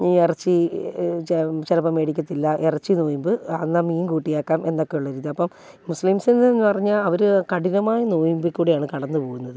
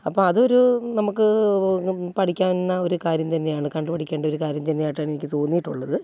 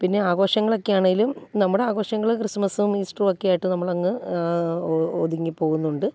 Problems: none marked